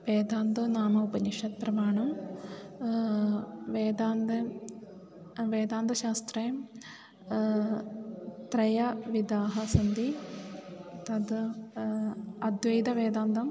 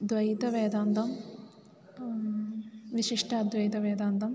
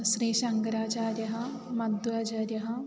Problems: constant background noise